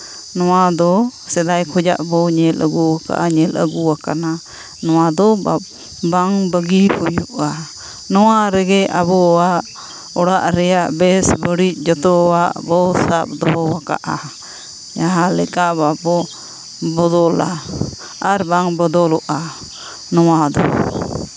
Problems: background sounds at intervals